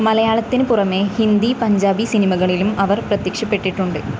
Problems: constant background noise